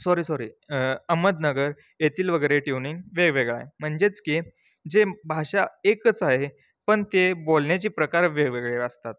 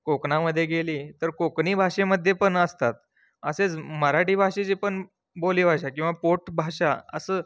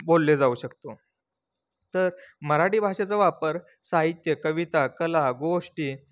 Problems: constant background noise